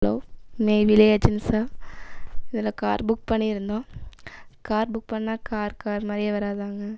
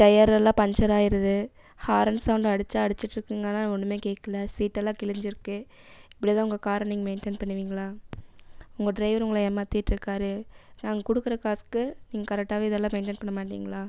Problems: none marked